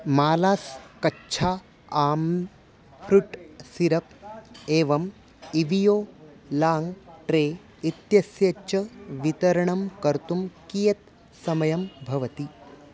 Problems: constant background noise